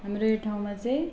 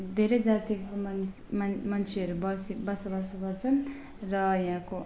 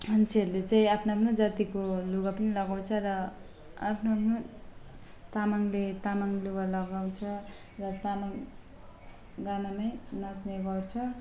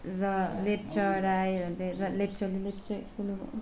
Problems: constant background noise, low volume